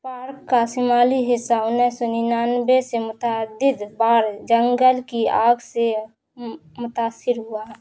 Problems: constant background noise